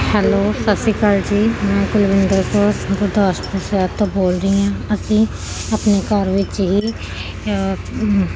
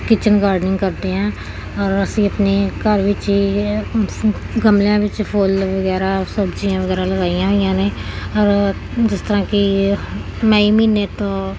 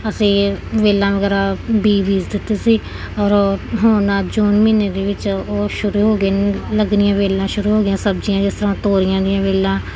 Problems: continuous background conversations